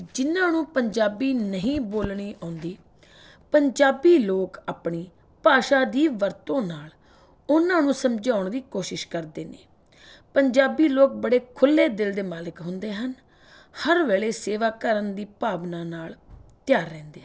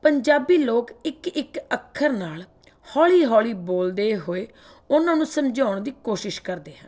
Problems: none marked